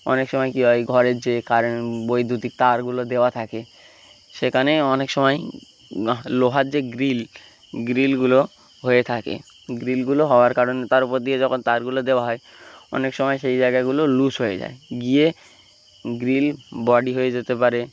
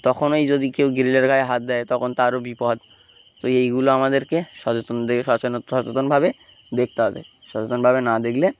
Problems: constant background noise